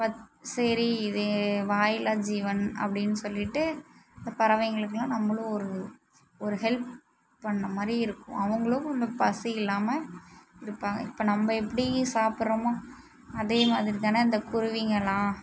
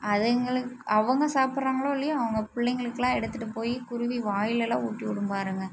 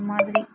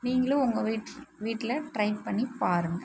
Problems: none marked